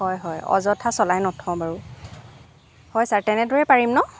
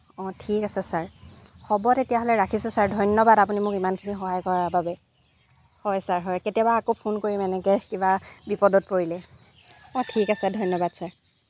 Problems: background sounds at intervals